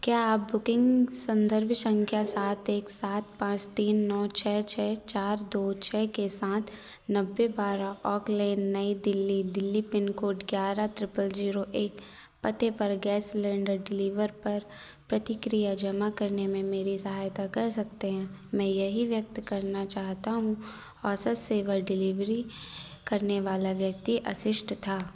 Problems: background sounds at intervals